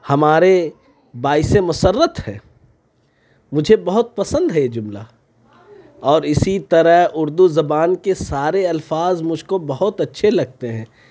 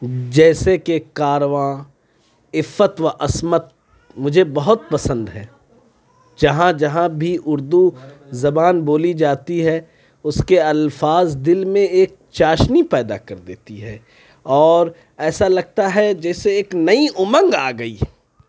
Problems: none marked